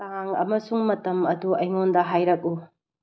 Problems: low volume